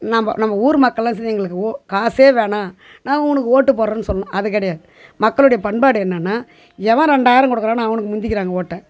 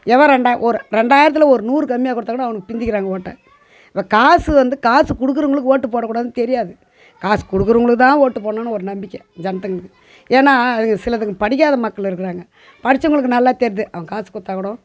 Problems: background sounds at intervals